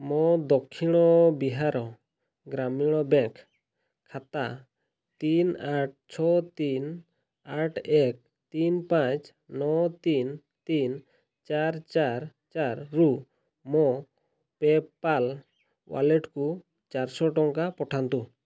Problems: none marked